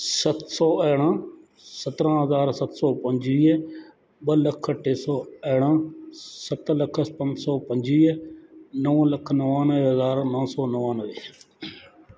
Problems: constant background noise, echo